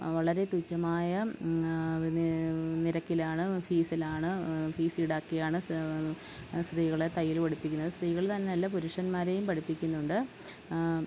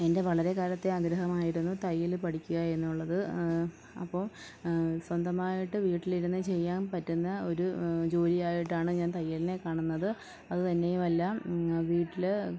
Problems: low volume